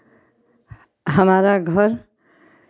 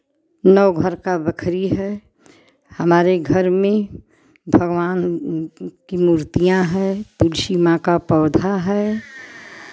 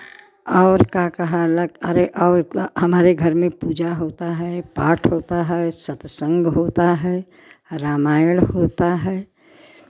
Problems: background sounds at intervals